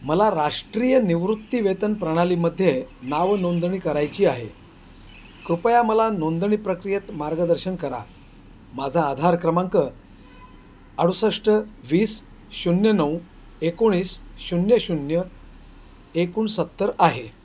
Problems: constant background noise